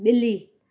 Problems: none marked